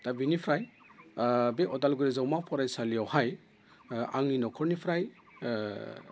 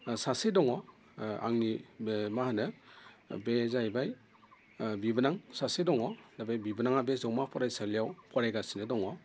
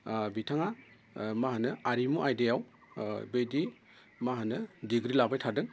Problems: constant background noise